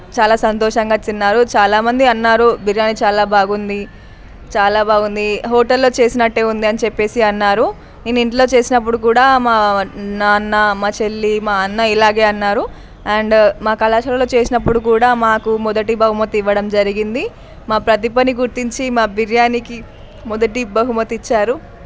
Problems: none marked